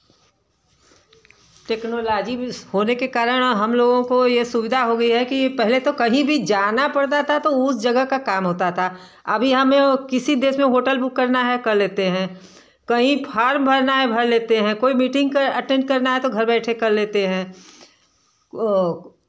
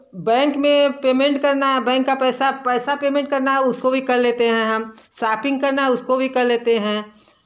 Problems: constant background noise, background conversations at intervals